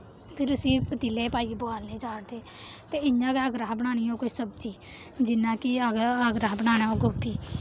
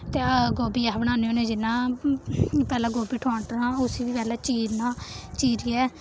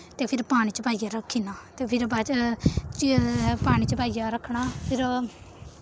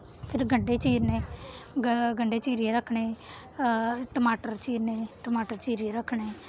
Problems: background sounds at intervals